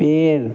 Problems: constant background noise